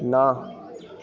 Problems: background sounds at intervals